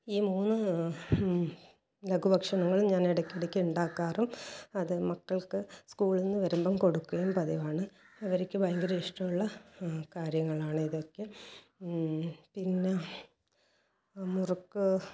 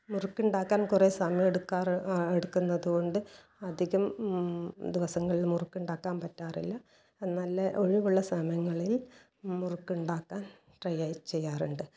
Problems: low volume